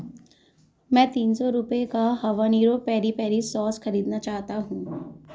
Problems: background sounds at intervals